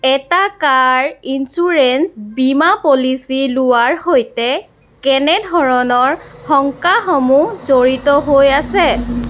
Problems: constant background noise